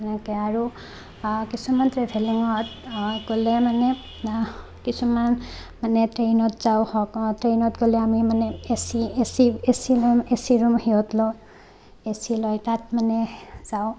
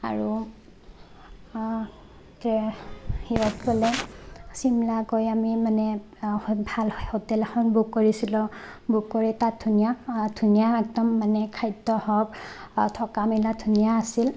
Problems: constant background noise, background conversations at intervals